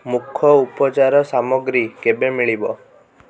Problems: background conversations at intervals